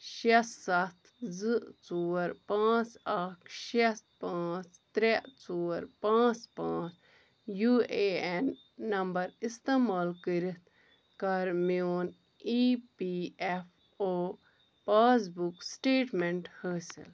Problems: none marked